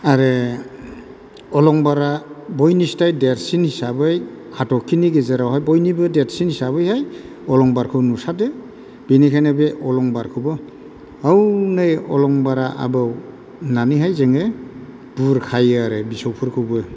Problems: none marked